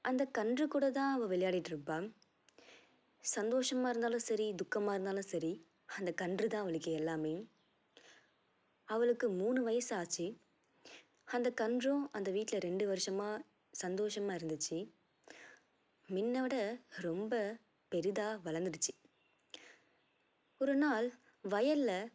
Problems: low volume